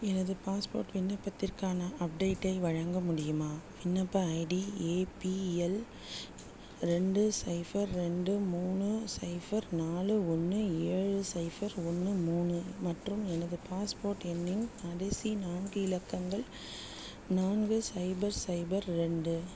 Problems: low volume